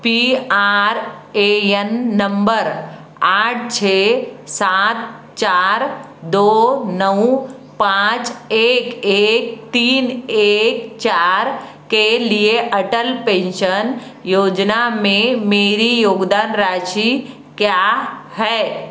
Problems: constant background noise